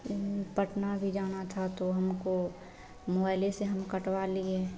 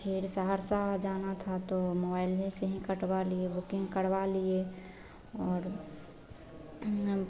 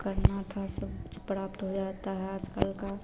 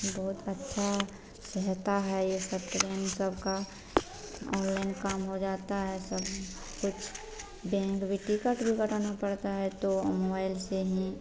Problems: constant background noise